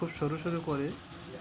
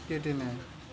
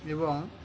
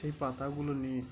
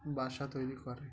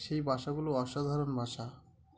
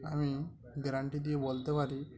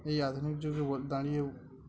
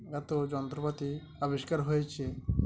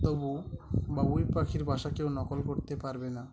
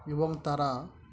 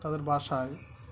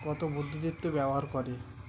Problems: constant background noise, continuous background conversations